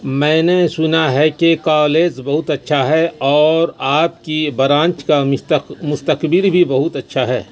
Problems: constant background noise